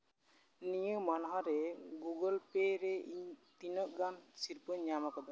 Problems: background sounds at intervals